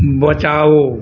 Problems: background sounds at intervals